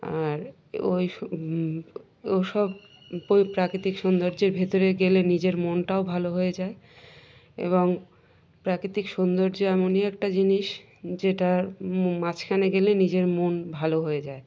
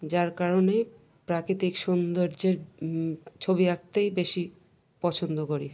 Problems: none marked